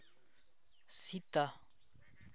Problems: background conversations at intervals